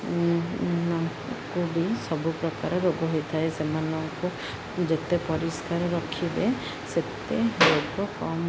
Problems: none marked